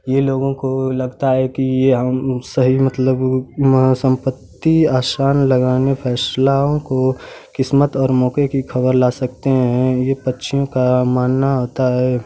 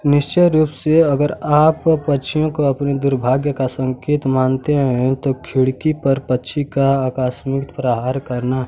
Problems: none marked